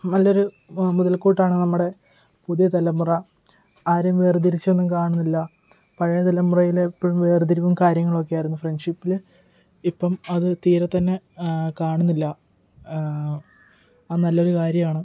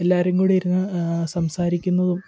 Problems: background sounds at intervals, low volume